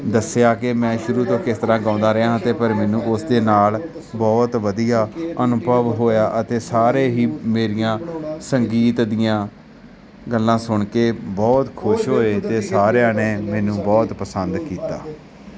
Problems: background sounds at intervals, background conversations at intervals